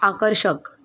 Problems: constant background noise, background conversations at intervals